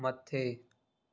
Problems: none marked